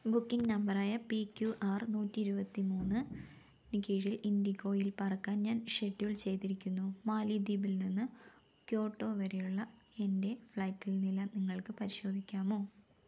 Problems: none marked